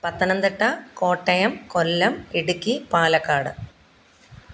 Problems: background conversations at intervals